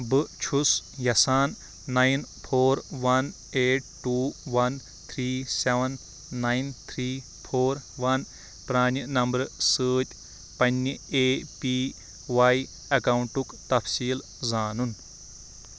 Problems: constant background noise